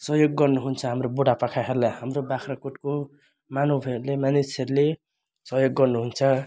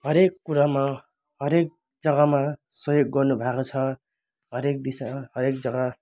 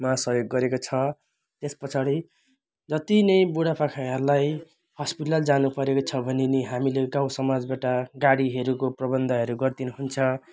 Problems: none marked